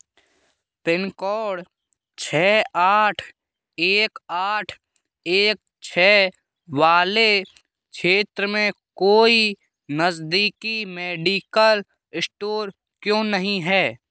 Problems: background sounds at intervals